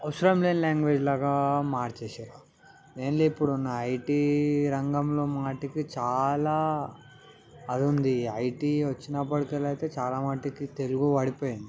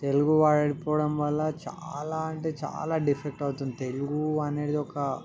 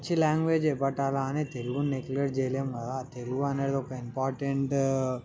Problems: background sounds at intervals, background conversations at intervals